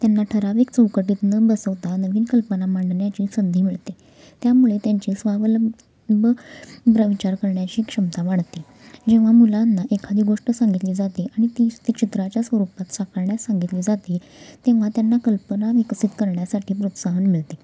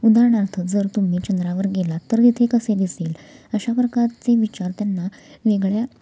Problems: constant background noise, continuous background conversations